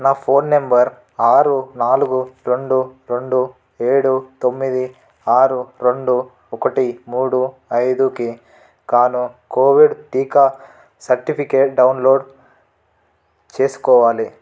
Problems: none marked